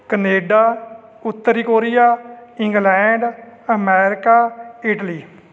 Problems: none marked